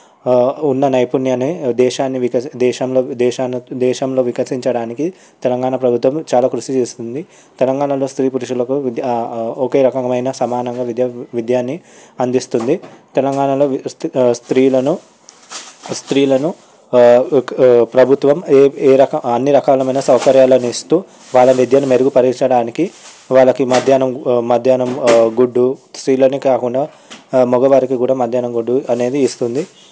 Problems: background sounds at intervals